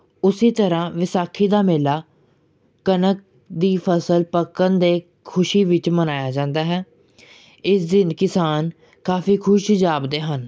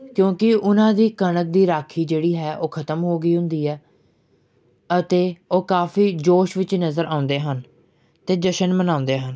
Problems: background sounds at intervals